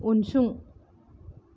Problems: none marked